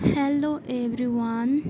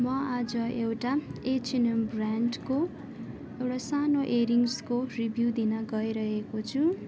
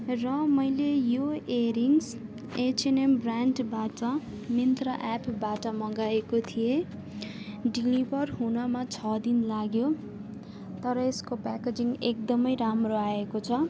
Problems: constant background noise